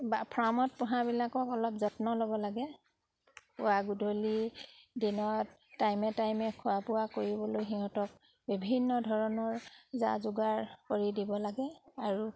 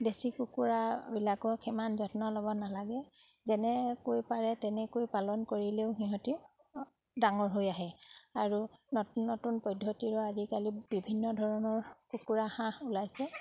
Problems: constant background noise